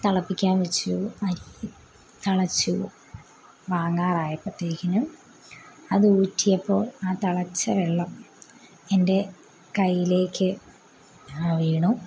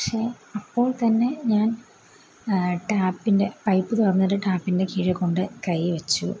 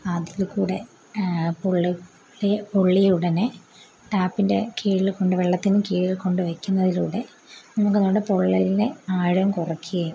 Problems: background sounds at intervals